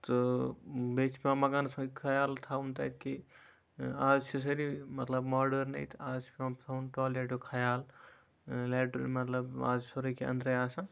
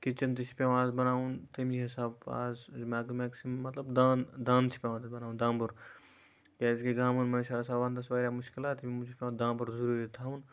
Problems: background sounds at intervals